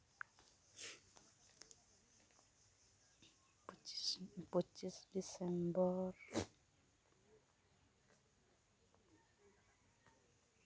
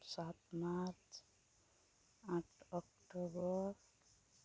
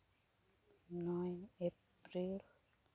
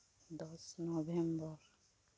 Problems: low volume